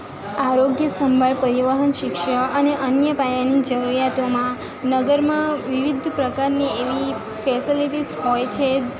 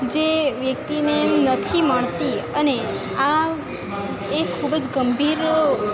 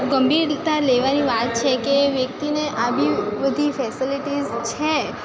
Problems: none marked